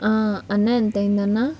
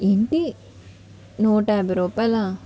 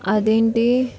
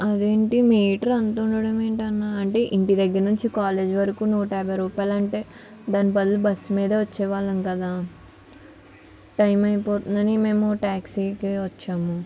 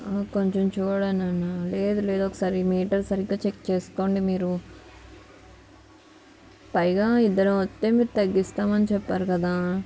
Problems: background sounds at intervals, background conversations at intervals